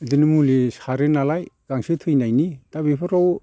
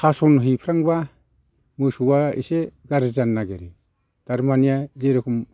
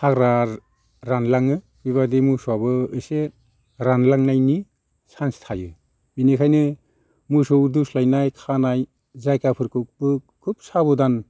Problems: constant background noise